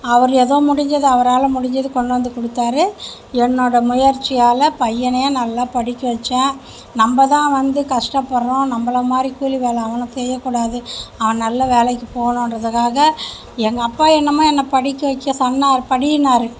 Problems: none marked